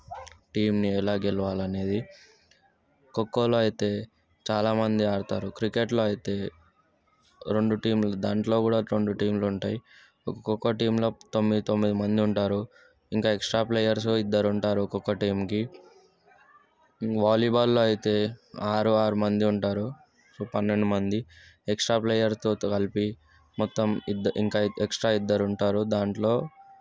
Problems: none marked